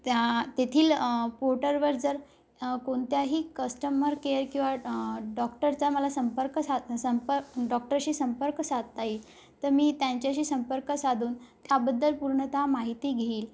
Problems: background sounds at intervals